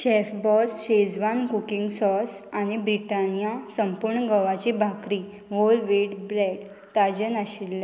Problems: constant background noise